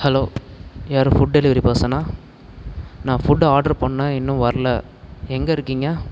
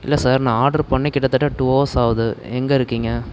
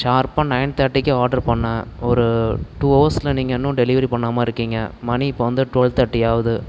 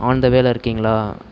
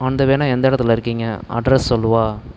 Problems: constant background noise